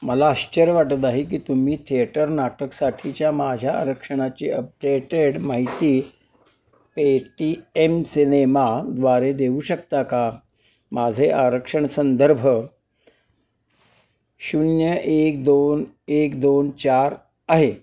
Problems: none marked